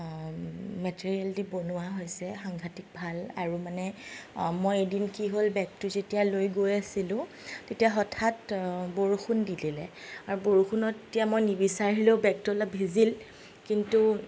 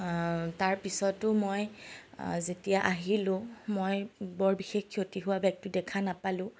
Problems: none marked